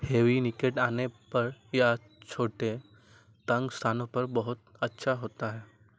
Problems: none marked